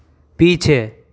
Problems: constant background noise